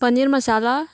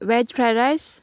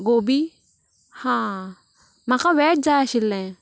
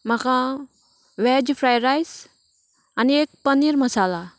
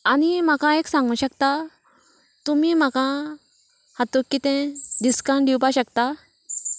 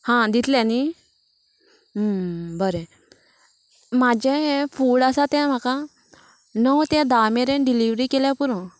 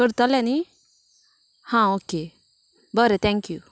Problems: constant background noise